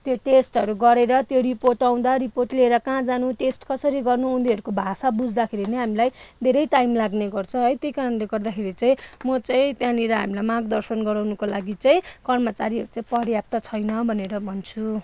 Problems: none marked